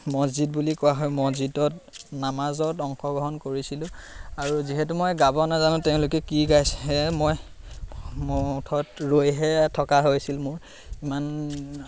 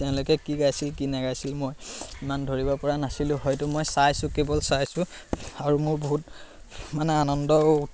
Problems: constant background noise, background conversations at intervals